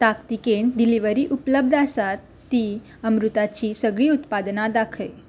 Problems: none marked